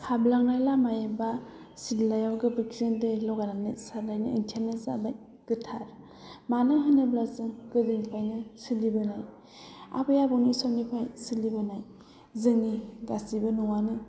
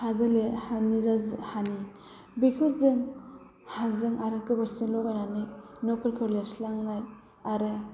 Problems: low volume